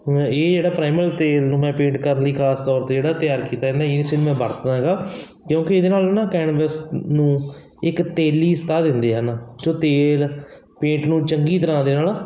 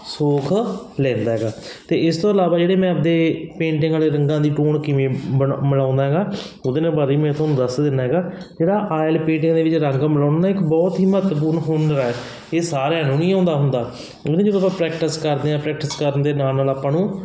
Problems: constant background noise